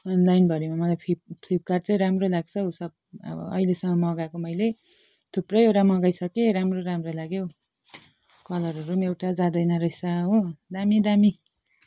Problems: none marked